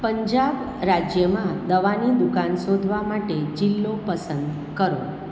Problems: none marked